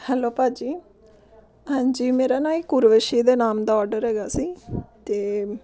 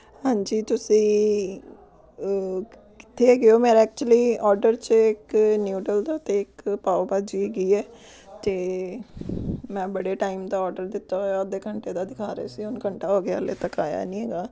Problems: background conversations at intervals